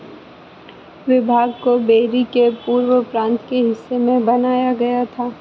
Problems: constant background noise